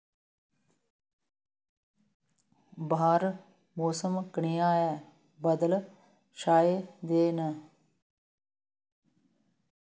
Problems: background sounds at intervals